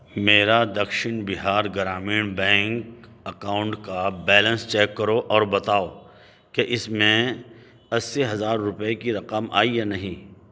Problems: none marked